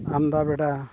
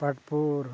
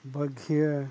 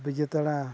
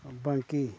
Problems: constant background noise, low volume